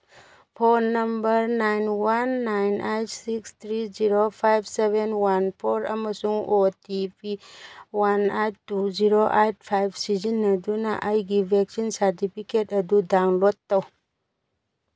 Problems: background sounds at intervals